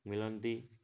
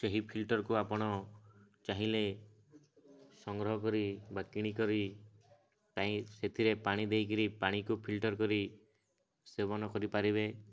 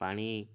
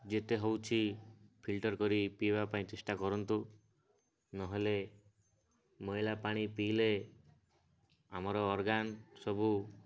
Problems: none marked